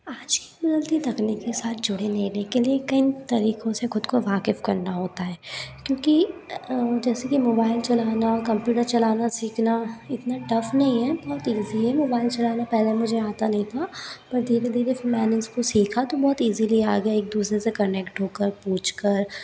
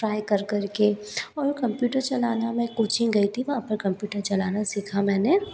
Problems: background sounds at intervals, low volume